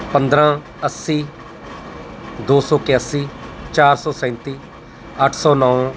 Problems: constant background noise